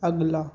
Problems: low volume